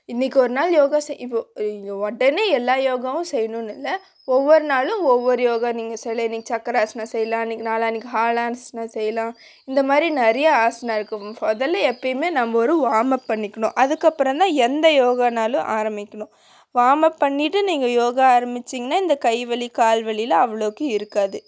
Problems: none marked